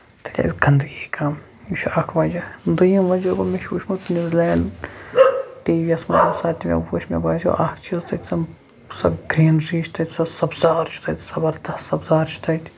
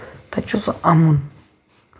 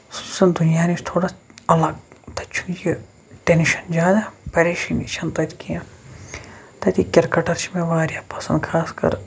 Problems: background sounds at intervals, background conversations at intervals